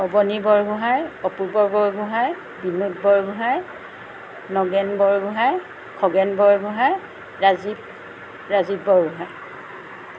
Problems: none marked